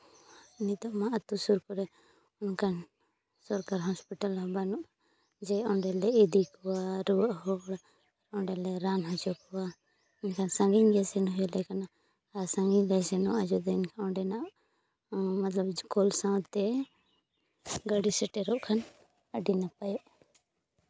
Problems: none marked